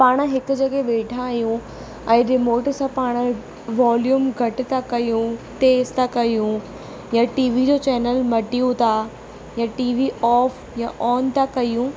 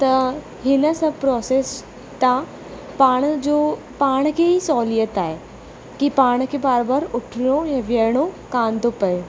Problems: constant background noise